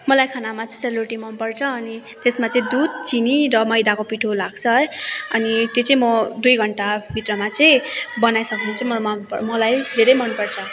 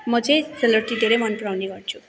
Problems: constant background noise, continuous background conversations